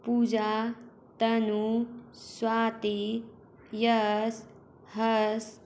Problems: constant background noise